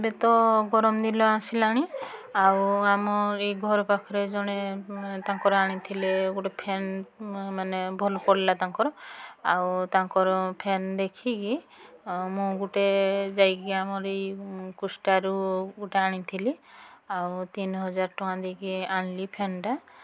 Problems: constant background noise, continuous background conversations